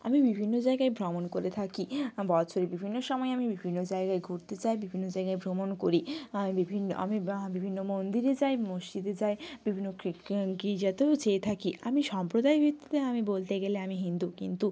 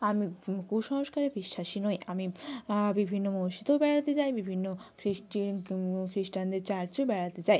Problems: background conversations at intervals